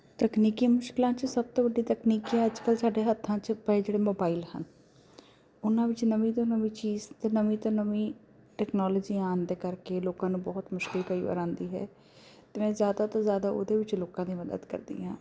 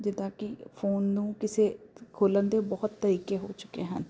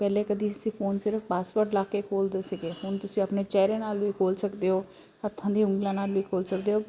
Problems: none marked